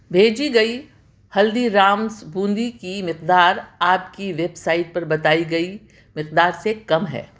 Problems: none marked